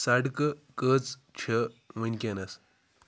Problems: none marked